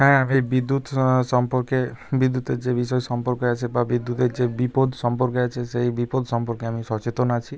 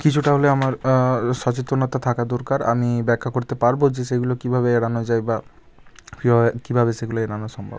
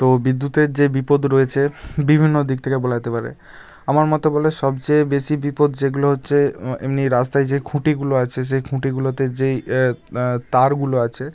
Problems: none marked